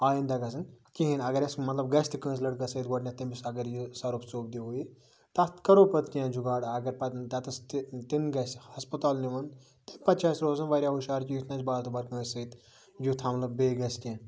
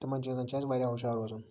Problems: background sounds at intervals